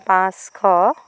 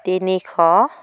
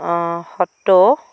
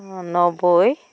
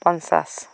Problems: constant background noise